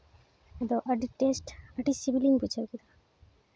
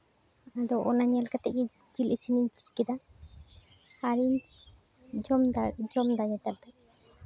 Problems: constant background noise